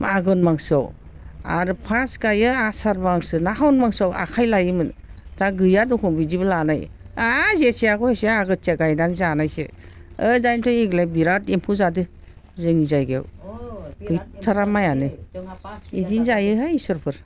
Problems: constant background noise